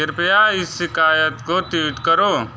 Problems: background sounds at intervals